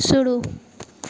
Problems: constant background noise